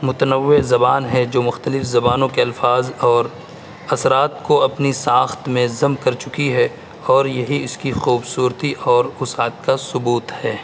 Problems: constant background noise